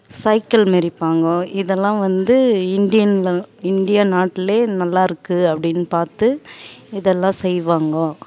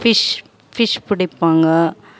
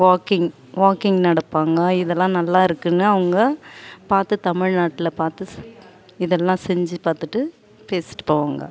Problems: none marked